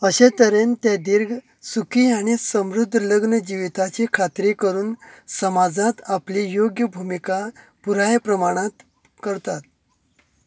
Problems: constant background noise